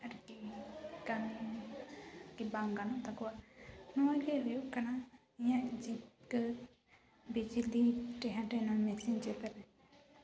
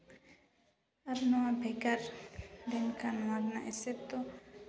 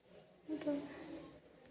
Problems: none marked